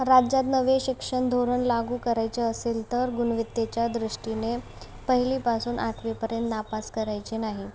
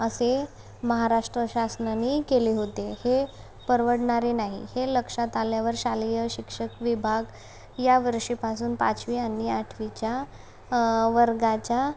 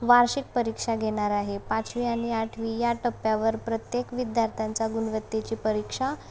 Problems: background sounds at intervals